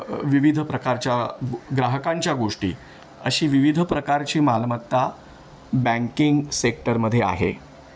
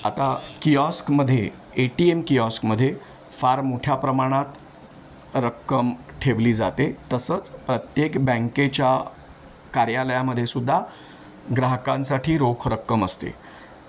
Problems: none marked